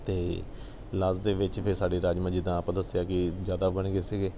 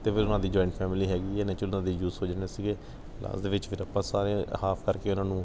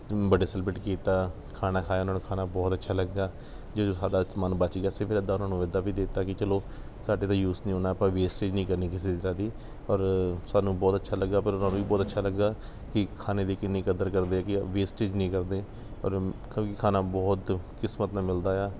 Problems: background sounds at intervals